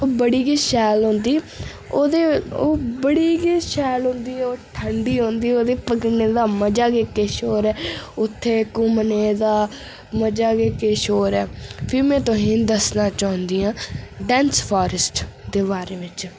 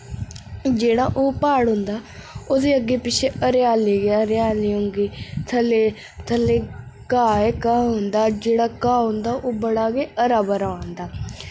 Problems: none marked